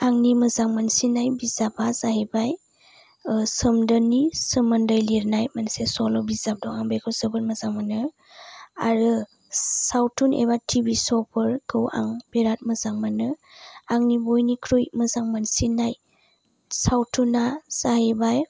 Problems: low volume